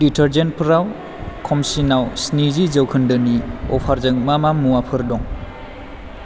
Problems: constant background noise